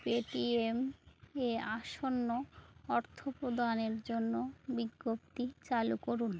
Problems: background conversations at intervals